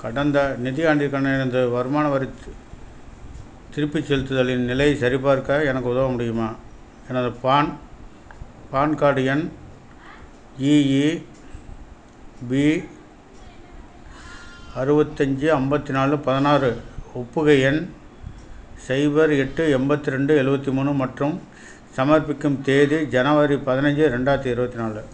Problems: none marked